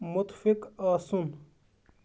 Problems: none marked